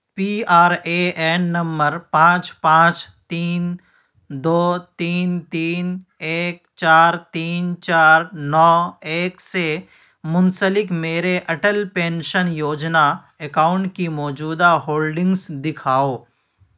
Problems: none marked